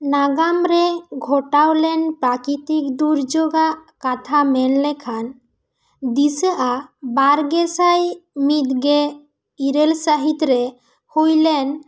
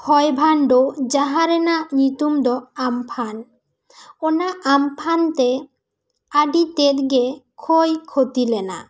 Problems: none marked